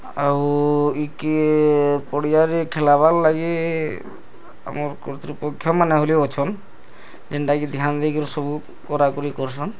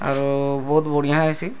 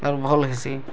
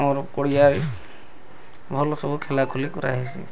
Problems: background sounds at intervals